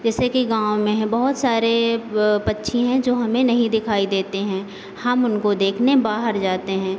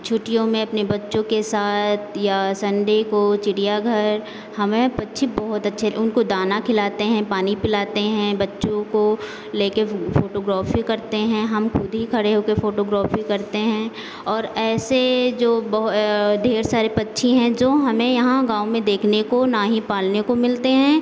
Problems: constant background noise